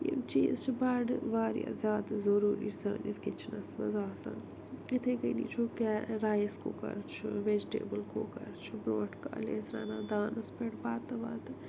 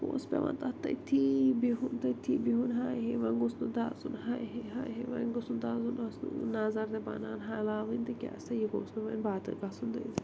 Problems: constant background noise